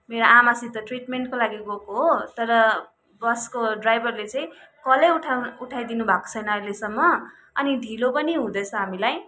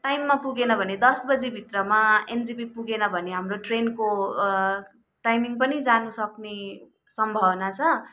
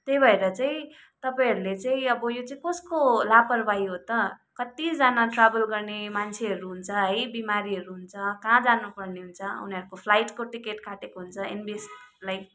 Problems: background sounds at intervals